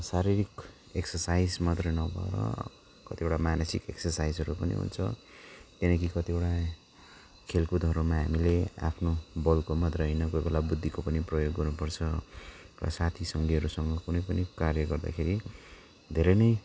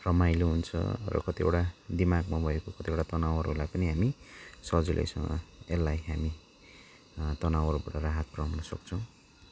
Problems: none marked